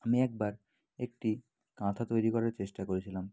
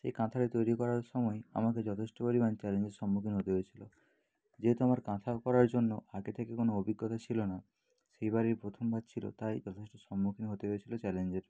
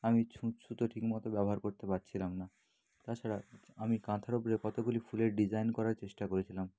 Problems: background sounds at intervals, low volume